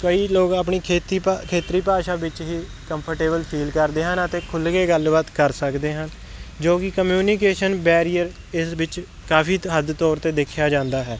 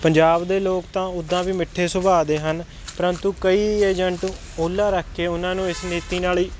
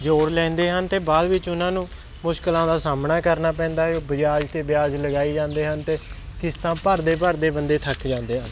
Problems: constant background noise